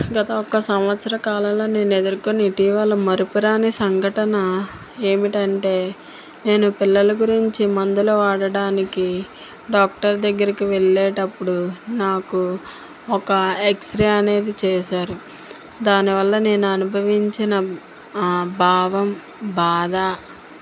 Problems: constant background noise